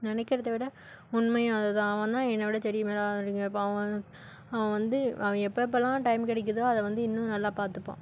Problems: none marked